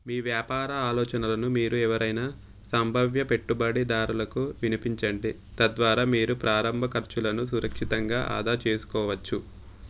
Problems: none marked